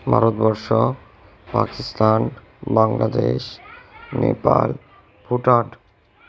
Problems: background conversations at intervals